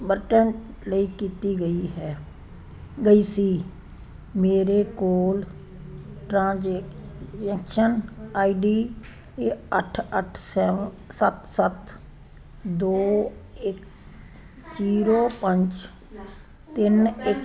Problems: constant background noise